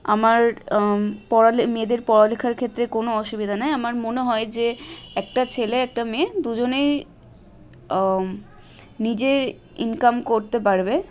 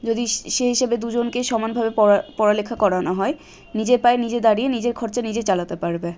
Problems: constant background noise